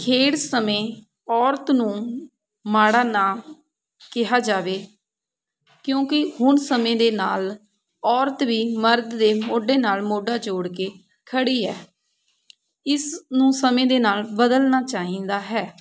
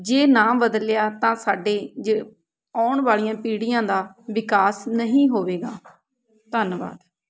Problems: background sounds at intervals, background conversations at intervals